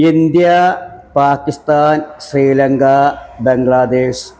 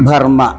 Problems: background sounds at intervals